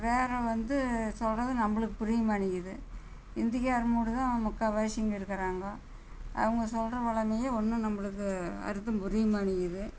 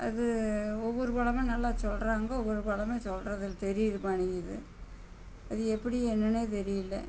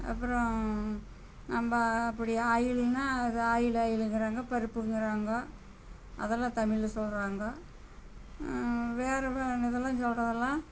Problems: constant background noise